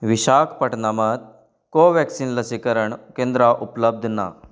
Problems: constant background noise